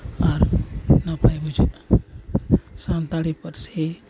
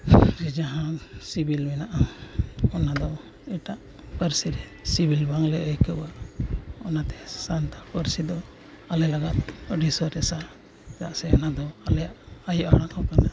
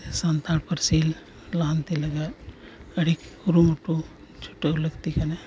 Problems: constant background noise